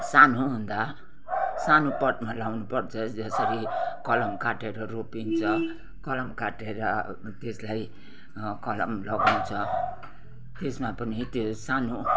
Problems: background sounds at intervals, background conversations at intervals